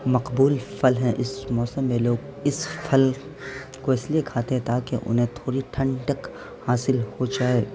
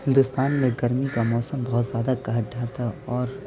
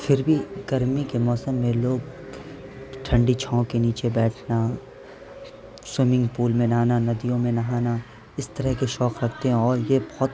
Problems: constant background noise